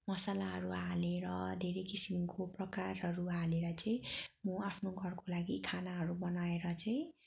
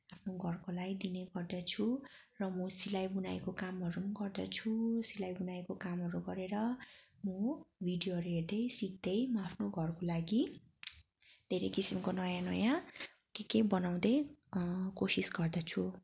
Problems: background sounds at intervals